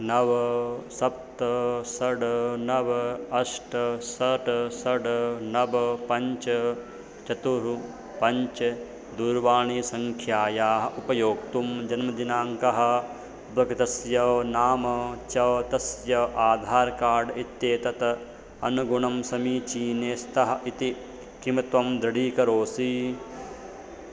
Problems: constant background noise, continuous background conversations